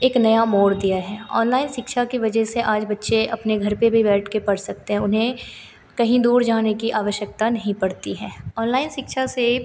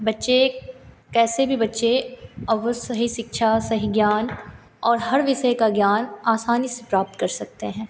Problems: continuous background conversations